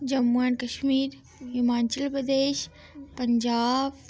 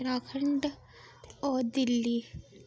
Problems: none marked